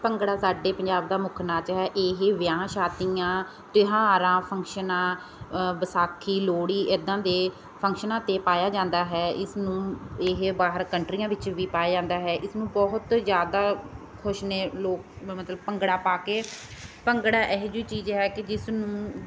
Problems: constant background noise